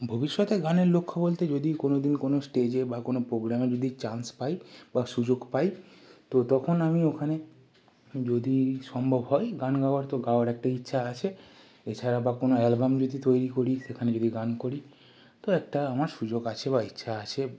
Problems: none marked